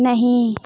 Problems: none marked